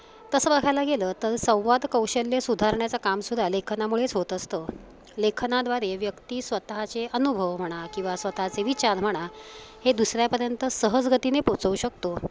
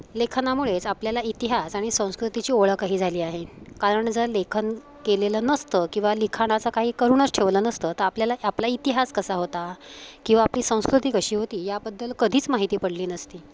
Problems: constant background noise